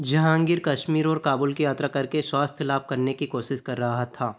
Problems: none marked